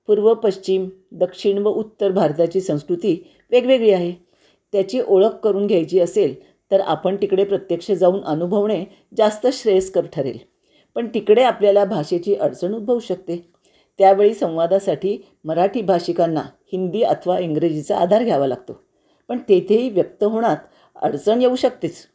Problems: constant background noise